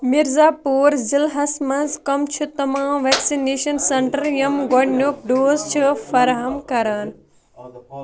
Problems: continuous background conversations